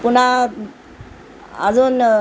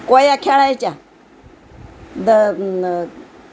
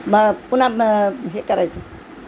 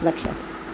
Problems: constant background noise